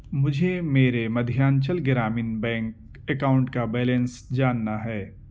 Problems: none marked